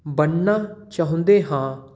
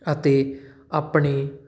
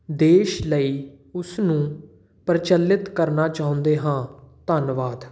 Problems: none marked